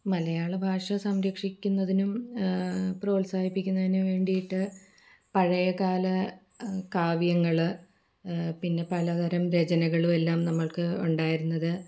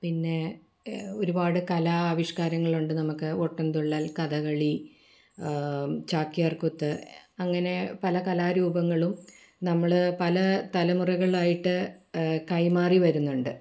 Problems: background sounds at intervals